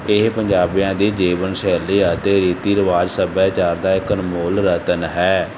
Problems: constant background noise